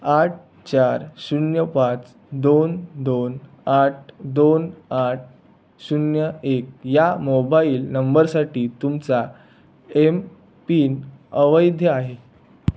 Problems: none marked